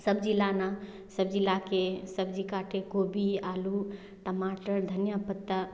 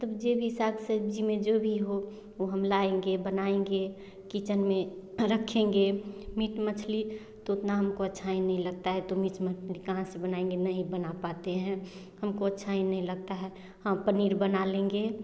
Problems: none marked